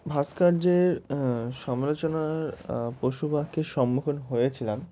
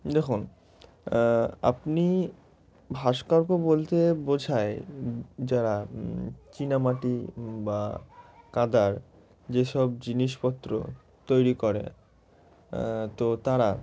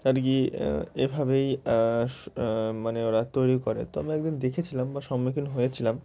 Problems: none marked